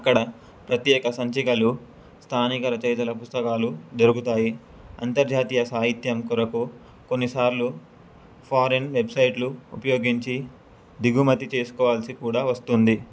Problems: none marked